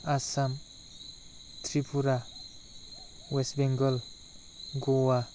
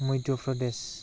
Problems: constant background noise